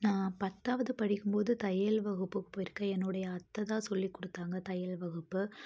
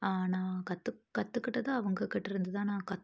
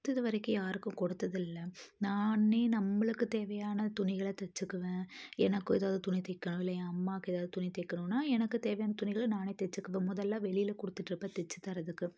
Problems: none marked